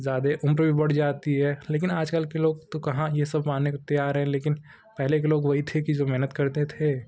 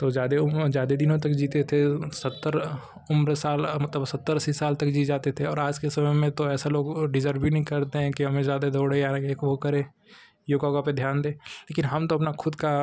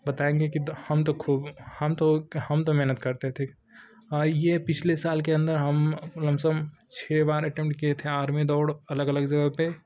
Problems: constant background noise